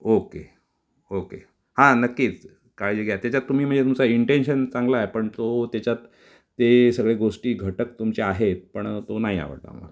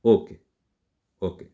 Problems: none marked